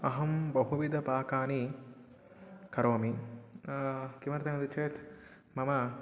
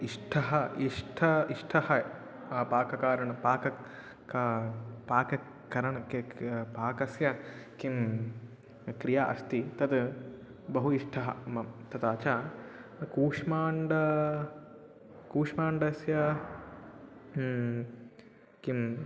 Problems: background conversations at intervals